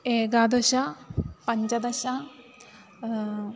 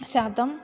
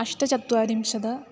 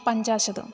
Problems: background sounds at intervals